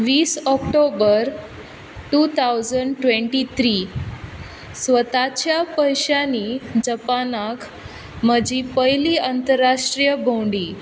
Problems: background sounds at intervals